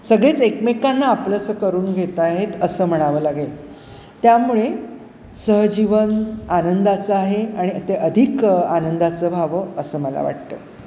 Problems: none marked